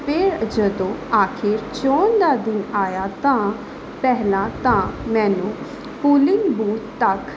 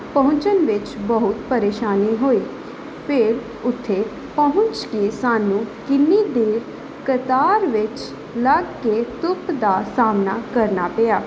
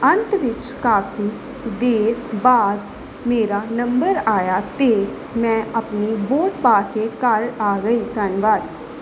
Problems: background sounds at intervals